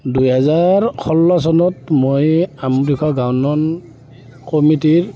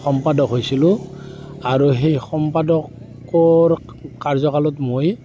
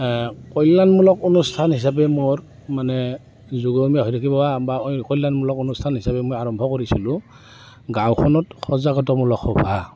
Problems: constant background noise